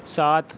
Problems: none marked